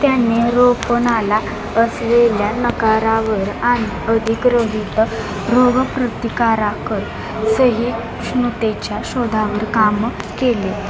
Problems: constant background noise